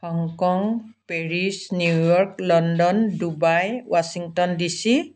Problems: background conversations at intervals